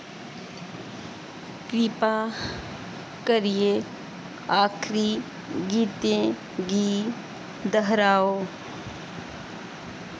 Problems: constant background noise